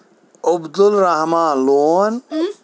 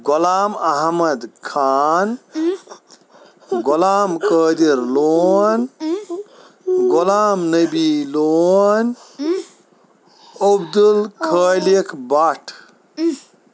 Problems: constant background noise